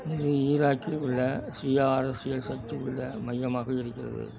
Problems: background sounds at intervals, background conversations at intervals